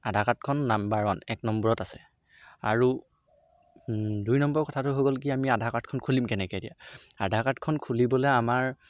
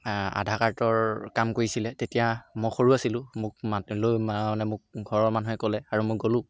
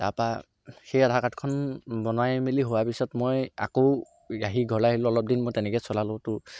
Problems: none marked